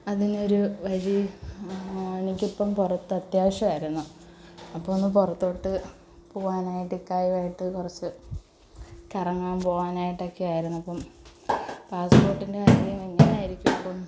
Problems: constant background noise